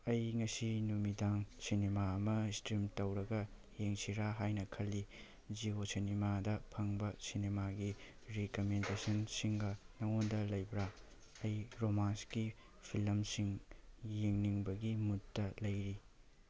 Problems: none marked